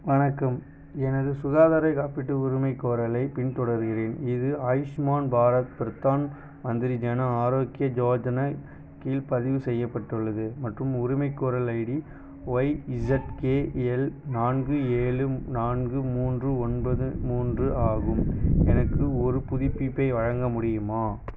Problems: none marked